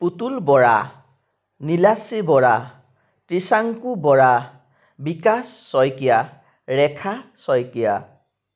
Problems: none marked